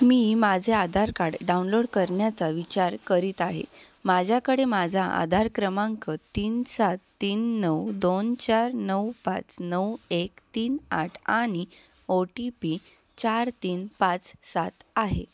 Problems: background sounds at intervals